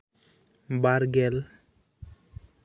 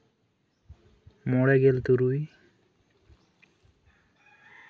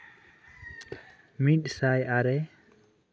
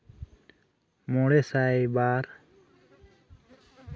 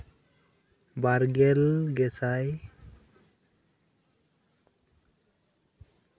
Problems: none marked